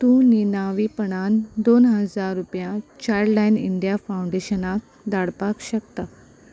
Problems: constant background noise